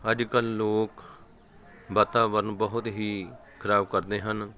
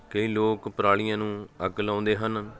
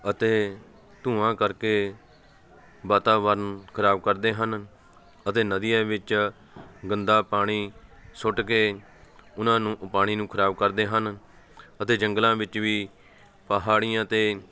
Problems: constant background noise, background conversations at intervals